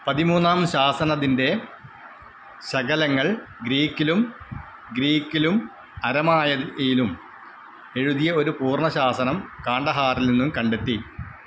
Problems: constant background noise